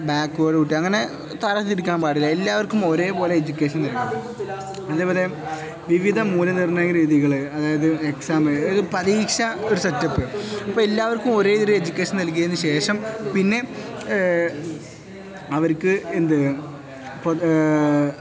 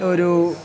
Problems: none marked